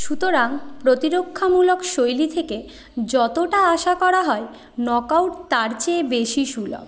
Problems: continuous background conversations